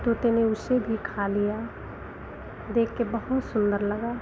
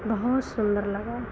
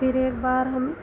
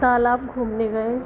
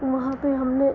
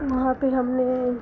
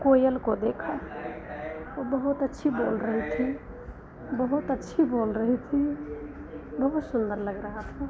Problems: none marked